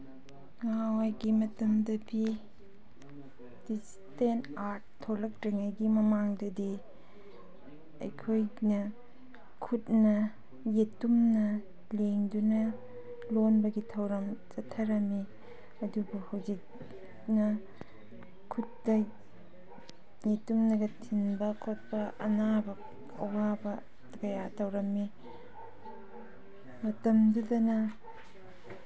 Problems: background sounds at intervals